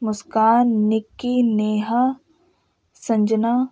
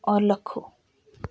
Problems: none marked